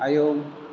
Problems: constant background noise